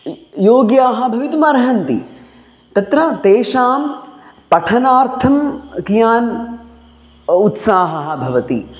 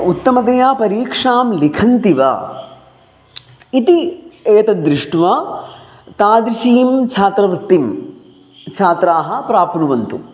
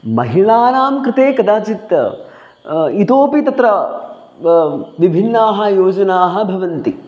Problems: none marked